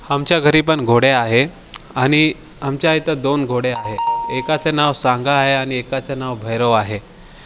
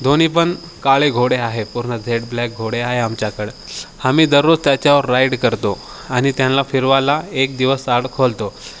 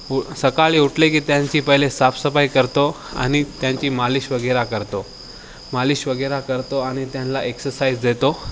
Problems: none marked